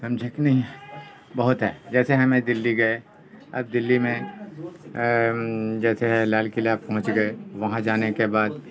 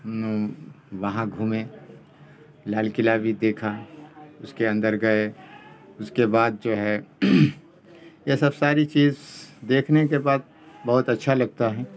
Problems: constant background noise